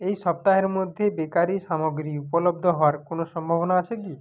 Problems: background sounds at intervals